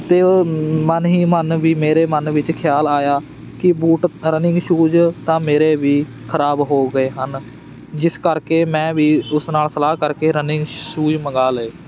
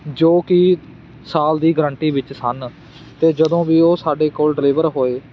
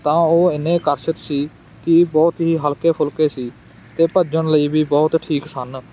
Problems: none marked